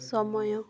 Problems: low volume